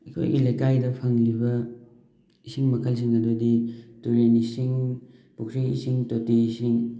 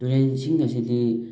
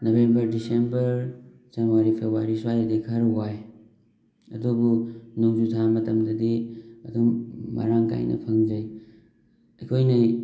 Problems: background sounds at intervals